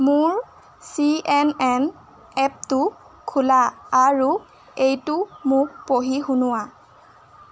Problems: constant background noise